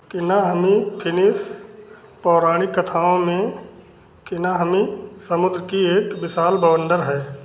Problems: constant background noise, continuous background conversations